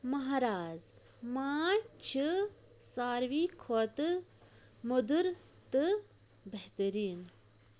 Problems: none marked